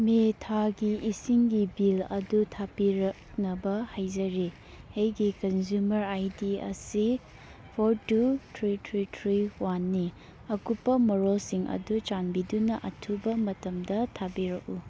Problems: background sounds at intervals